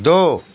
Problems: constant background noise